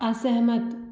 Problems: none marked